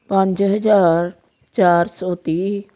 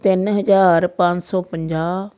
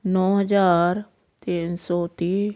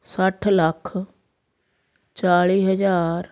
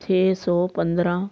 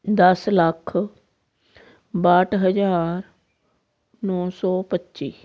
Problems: background sounds at intervals